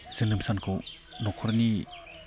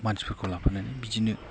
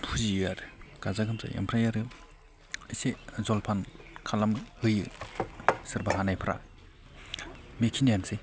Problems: none marked